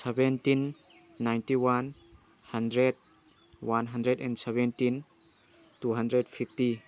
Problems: none marked